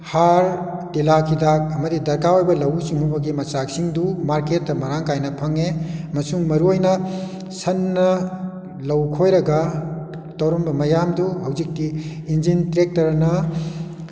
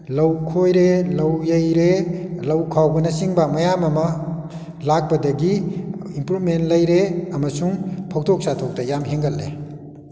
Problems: none marked